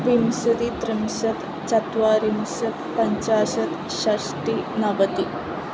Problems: constant background noise